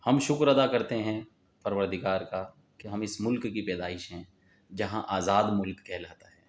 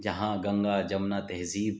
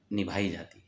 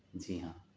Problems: none marked